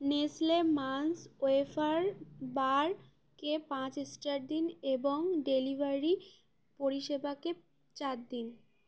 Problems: background conversations at intervals